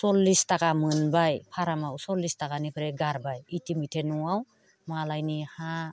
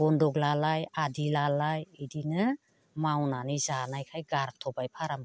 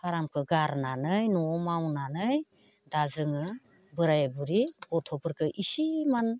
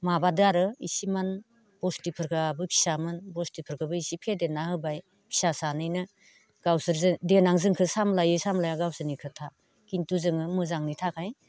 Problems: constant background noise